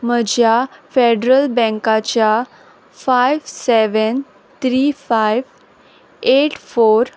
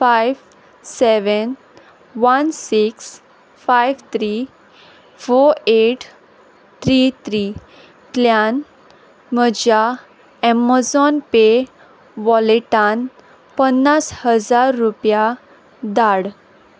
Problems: none marked